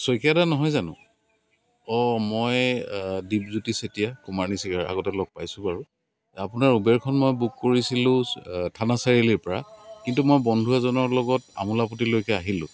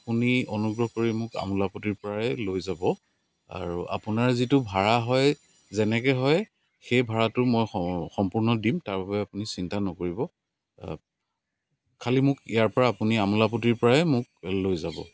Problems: constant background noise